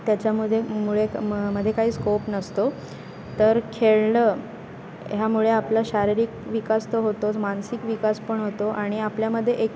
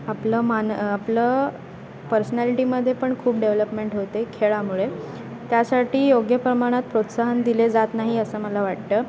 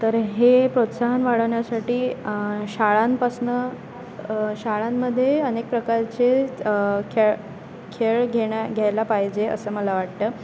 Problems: constant background noise, background conversations at intervals